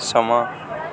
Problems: constant background noise